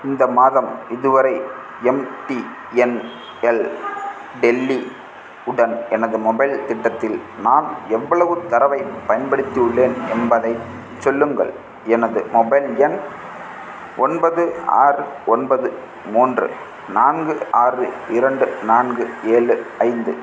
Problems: constant background noise